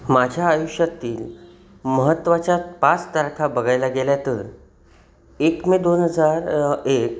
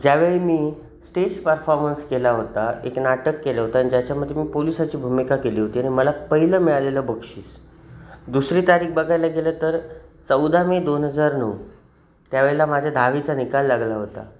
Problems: none marked